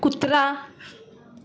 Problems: constant background noise